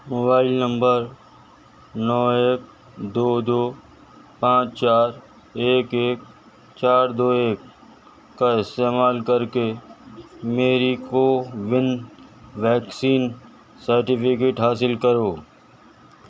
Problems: none marked